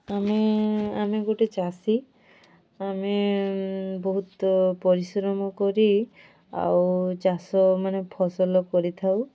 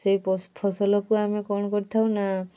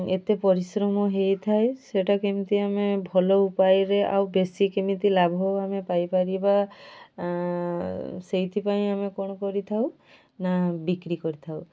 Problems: none marked